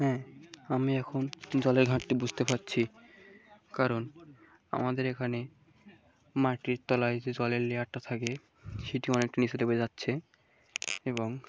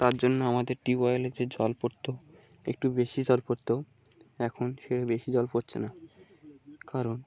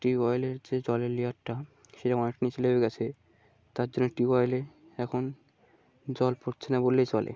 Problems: background sounds at intervals